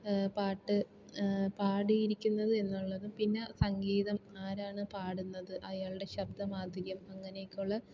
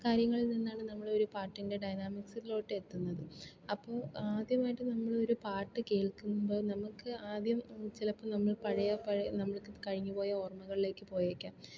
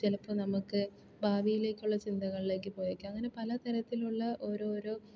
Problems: low volume